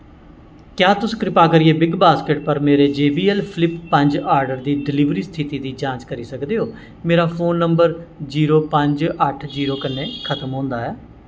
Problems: constant background noise